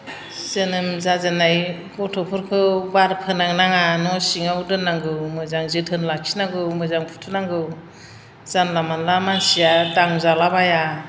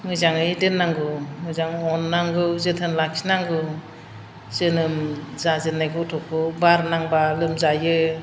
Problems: none marked